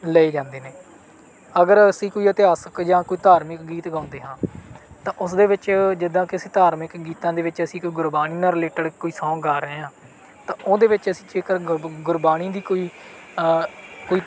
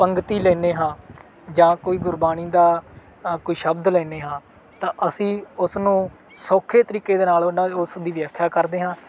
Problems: background sounds at intervals